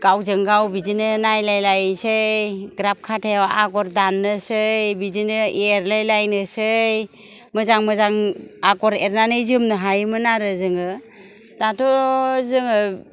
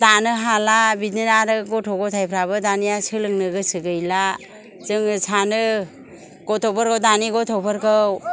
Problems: none marked